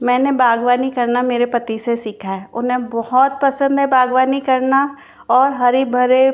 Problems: background sounds at intervals